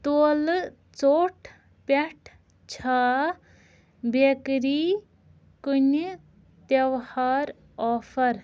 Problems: none marked